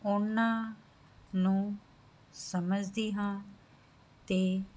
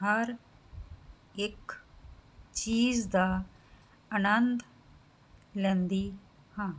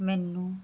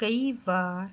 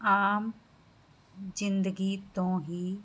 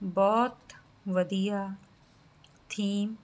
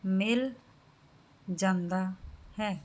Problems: background sounds at intervals